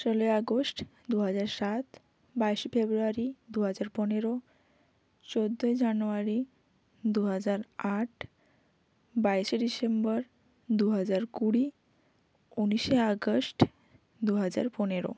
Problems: none marked